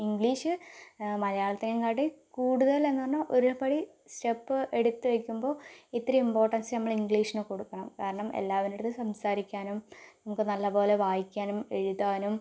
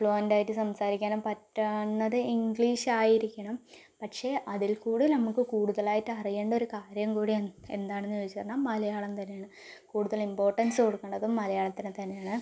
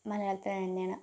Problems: none marked